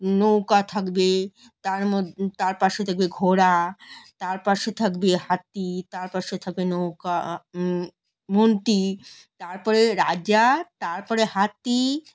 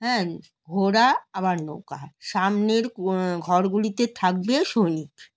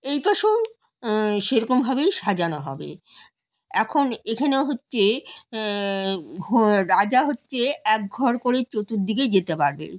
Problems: none marked